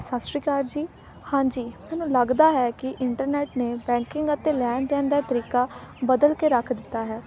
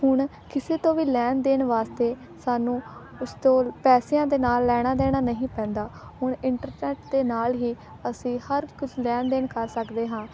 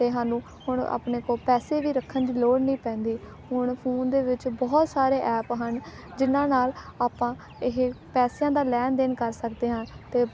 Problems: background sounds at intervals, background conversations at intervals